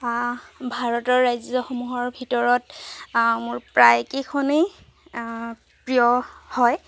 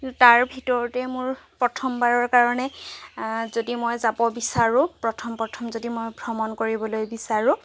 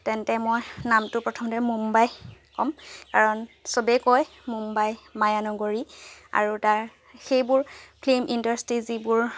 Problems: background sounds at intervals